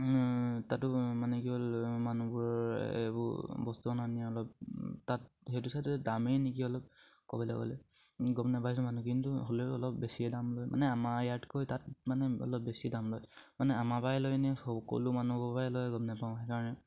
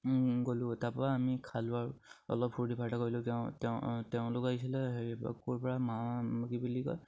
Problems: none marked